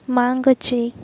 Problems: background sounds at intervals